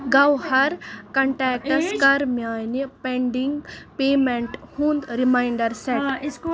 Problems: continuous background conversations